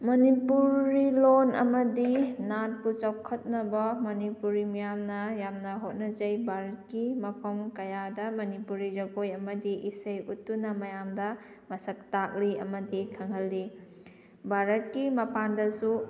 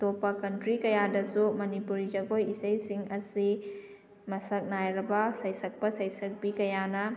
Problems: background sounds at intervals